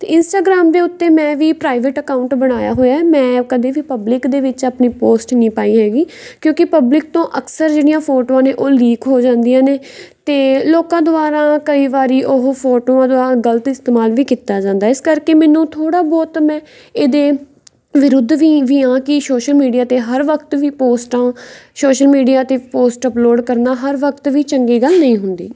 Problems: background sounds at intervals